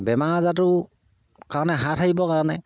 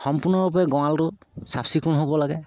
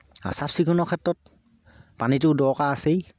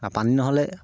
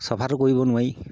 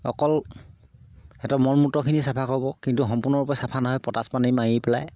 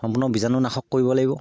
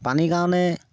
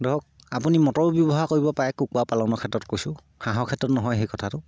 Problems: low volume